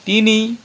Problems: none marked